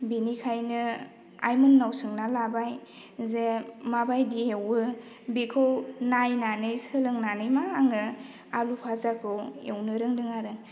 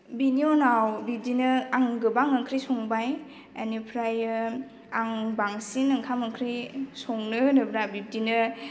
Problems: none marked